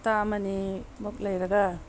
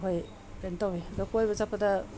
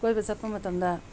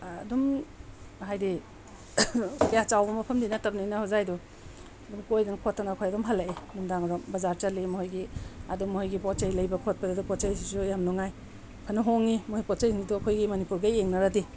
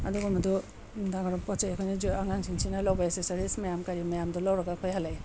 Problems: background sounds at intervals